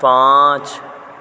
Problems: constant background noise